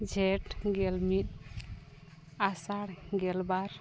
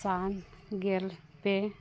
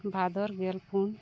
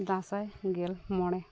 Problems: none marked